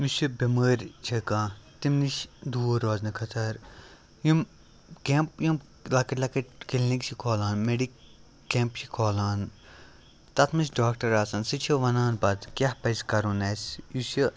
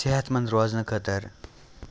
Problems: background sounds at intervals